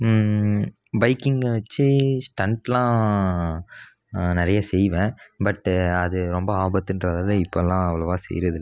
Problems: none marked